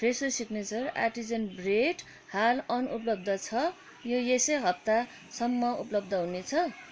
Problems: constant background noise, background conversations at intervals